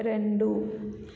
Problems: low volume